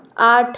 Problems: constant background noise